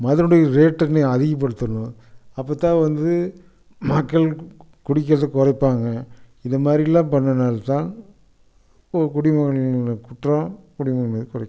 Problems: constant background noise